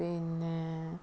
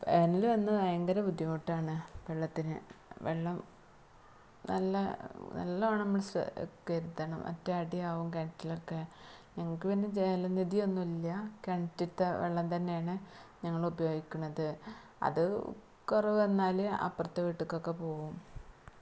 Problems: low volume